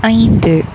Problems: background sounds at intervals